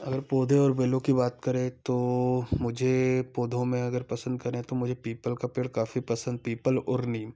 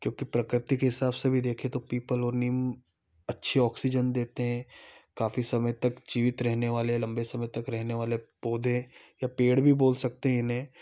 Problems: background sounds at intervals